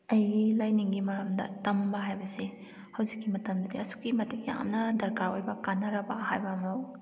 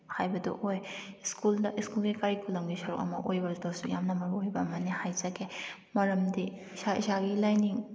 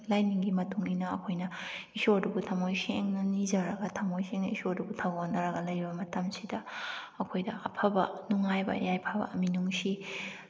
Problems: none marked